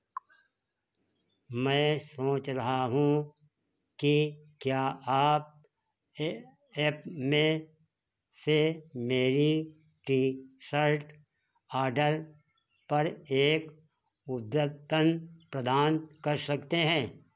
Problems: background sounds at intervals